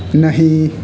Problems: background sounds at intervals